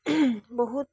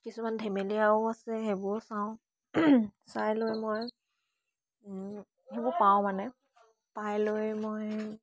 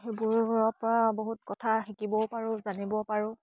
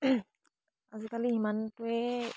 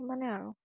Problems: none marked